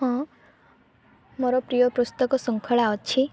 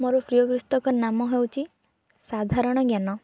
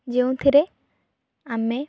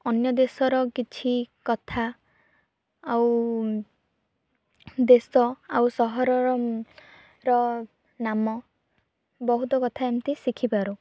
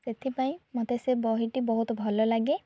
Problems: background sounds at intervals, low volume